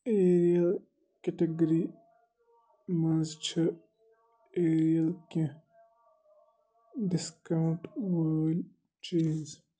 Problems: none marked